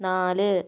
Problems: none marked